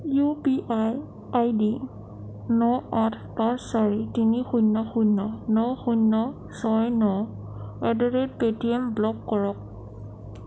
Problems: none marked